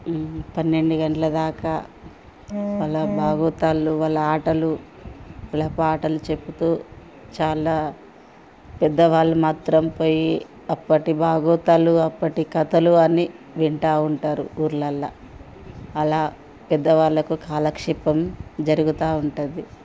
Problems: background sounds at intervals